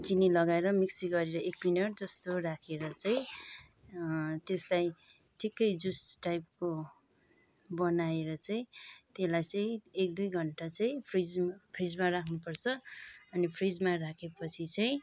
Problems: background sounds at intervals